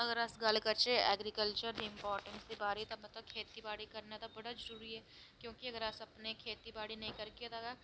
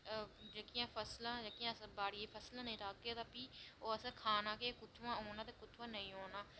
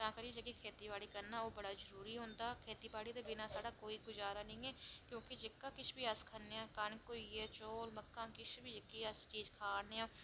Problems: none marked